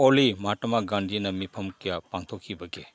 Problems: background sounds at intervals